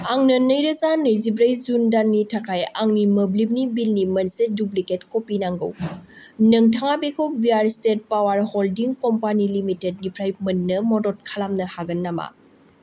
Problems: none marked